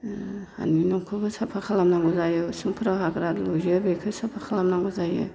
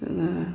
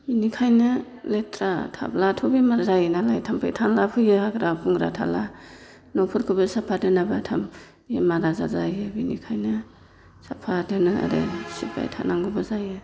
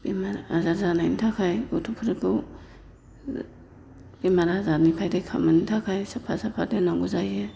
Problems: constant background noise